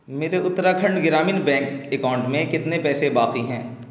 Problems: constant background noise